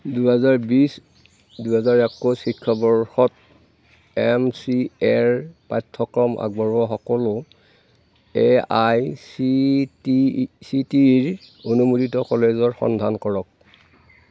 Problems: none marked